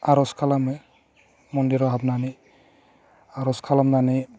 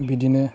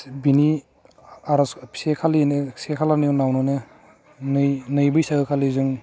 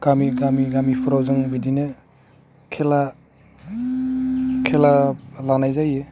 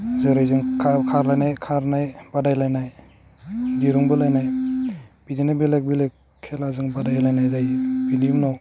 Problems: none marked